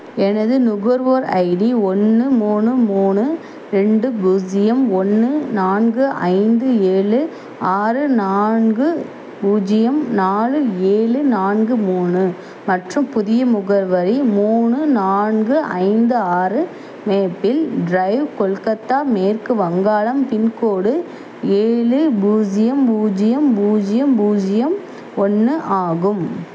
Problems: constant background noise